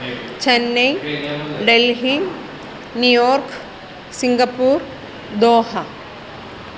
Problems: constant background noise